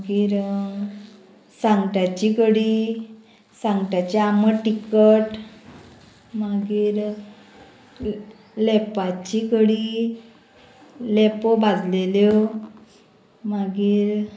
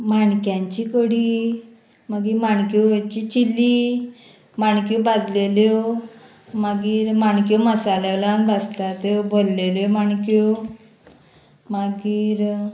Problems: constant background noise